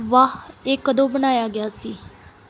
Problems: background sounds at intervals